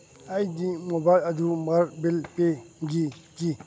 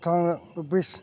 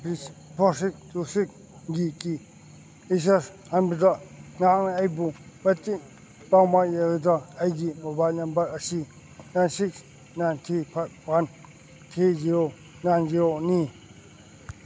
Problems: background sounds at intervals